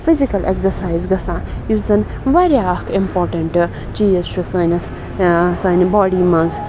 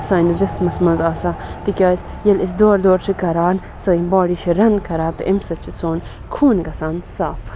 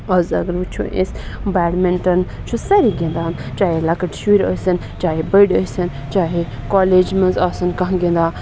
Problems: constant background noise